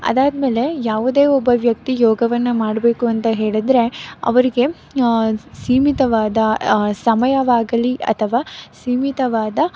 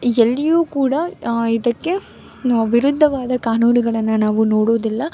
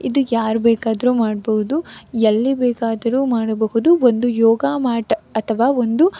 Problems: background sounds at intervals